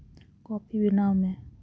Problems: none marked